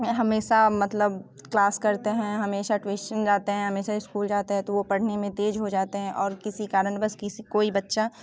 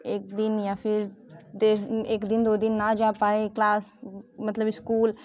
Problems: none marked